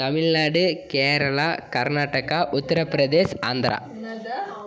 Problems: background conversations at intervals